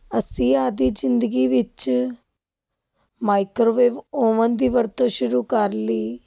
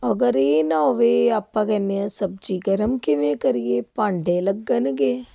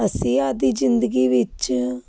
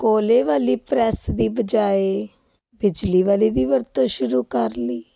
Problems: constant background noise